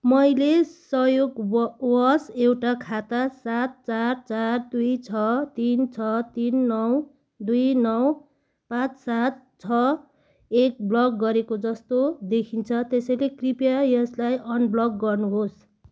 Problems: background sounds at intervals